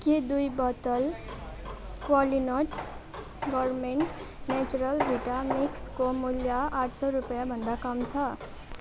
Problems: constant background noise